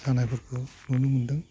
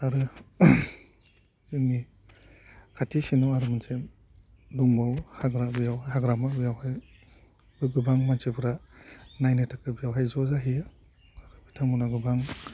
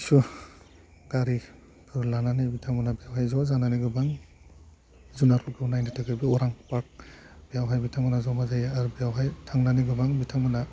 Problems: constant background noise